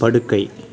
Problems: continuous background conversations